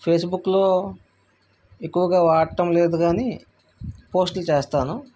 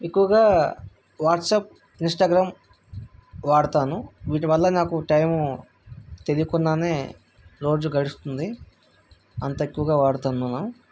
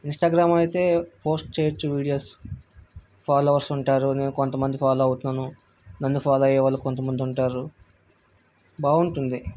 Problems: none marked